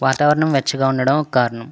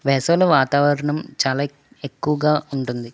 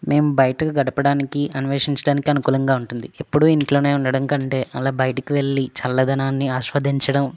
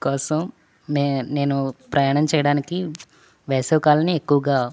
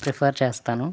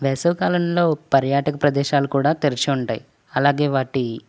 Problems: none marked